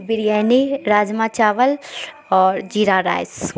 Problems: constant background noise